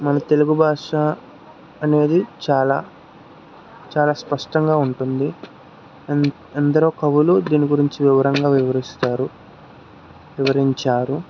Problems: constant background noise